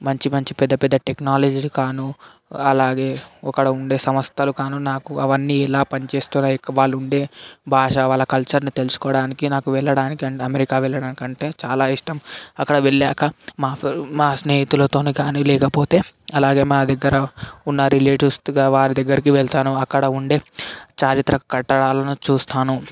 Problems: background sounds at intervals